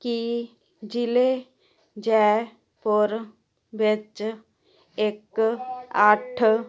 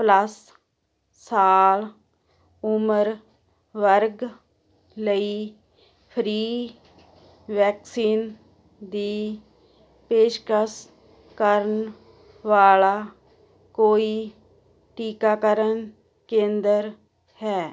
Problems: constant background noise